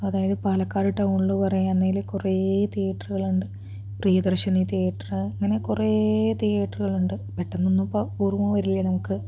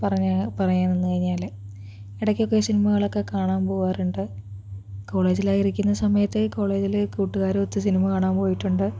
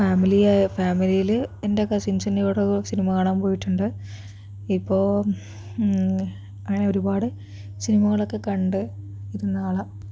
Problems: low volume